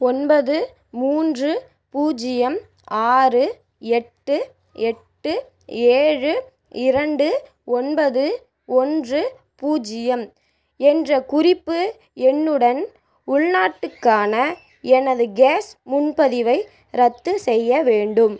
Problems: background conversations at intervals